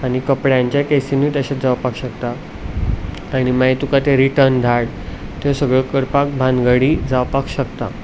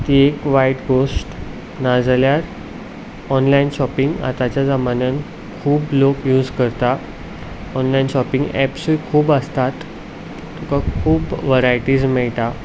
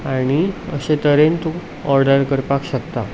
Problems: background sounds at intervals